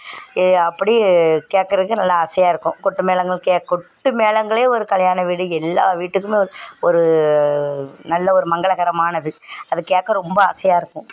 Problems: background sounds at intervals